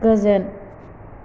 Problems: low volume